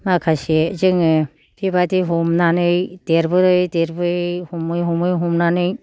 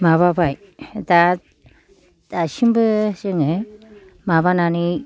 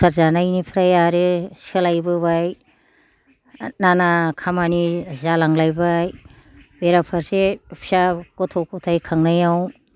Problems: low volume